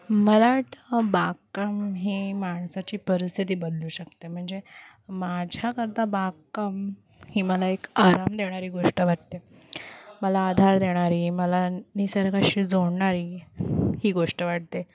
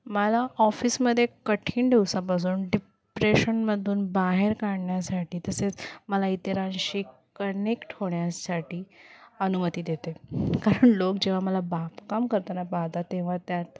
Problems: background sounds at intervals, background conversations at intervals